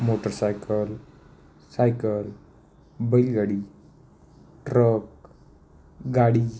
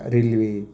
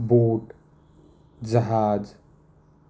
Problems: constant background noise, echo